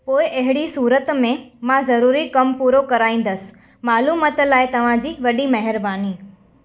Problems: background sounds at intervals, echo